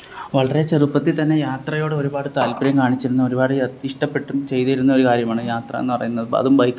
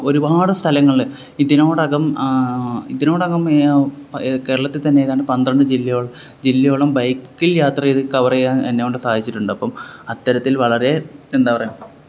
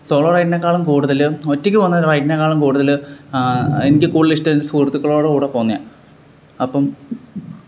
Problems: background sounds at intervals